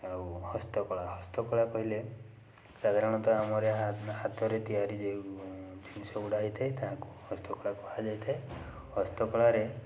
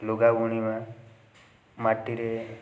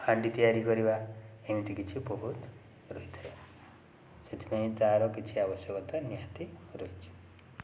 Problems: background conversations at intervals